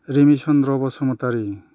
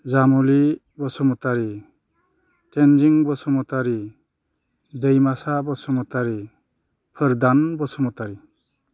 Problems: none marked